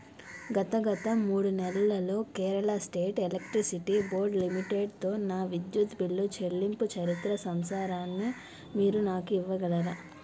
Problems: background sounds at intervals